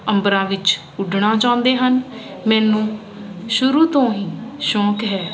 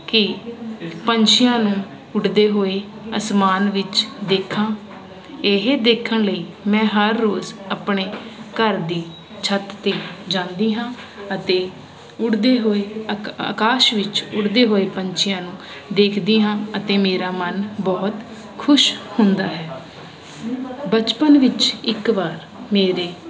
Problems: constant background noise